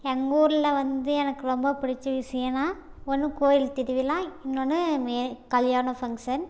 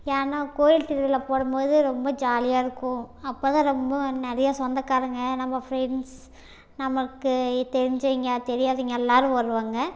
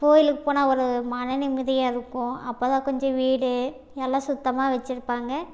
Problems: none marked